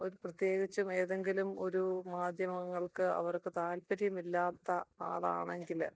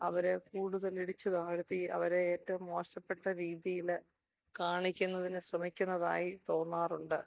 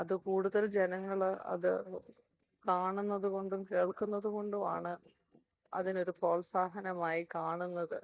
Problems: none marked